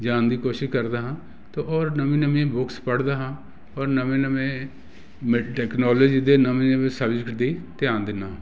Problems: constant background noise